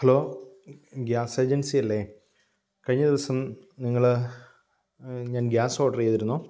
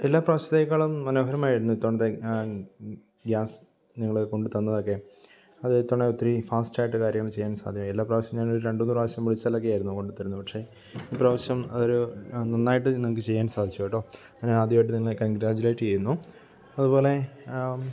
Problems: background sounds at intervals